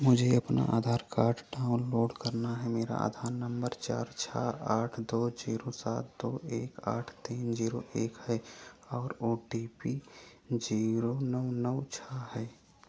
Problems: none marked